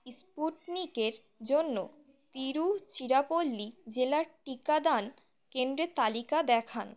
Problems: none marked